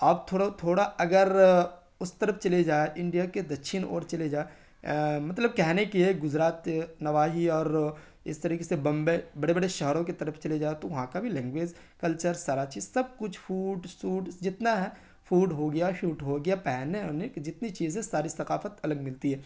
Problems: none marked